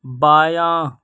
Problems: none marked